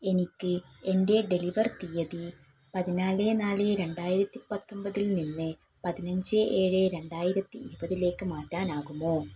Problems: none marked